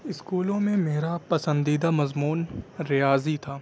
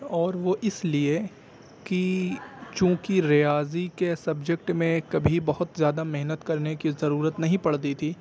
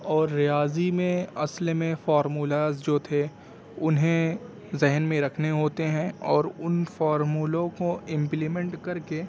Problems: constant background noise, low volume